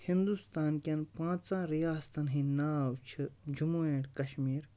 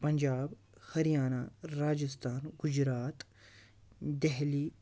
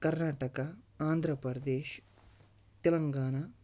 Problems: none marked